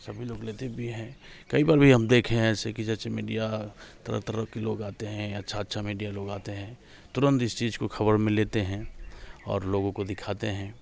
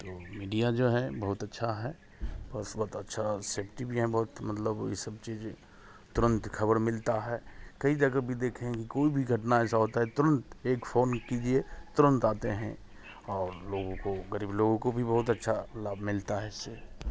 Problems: none marked